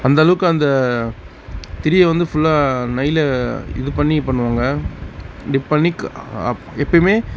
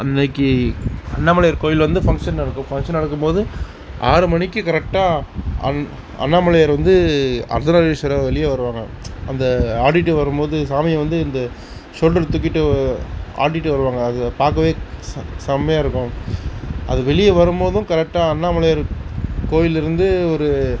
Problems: constant background noise